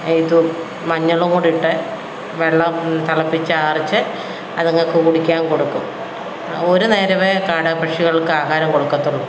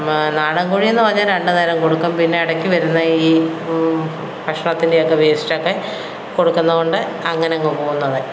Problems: background sounds at intervals